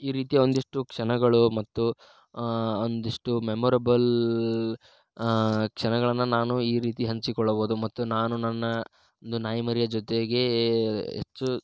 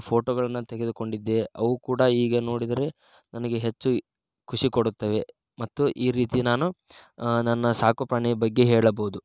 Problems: none marked